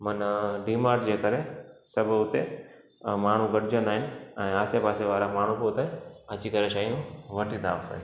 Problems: constant background noise, echo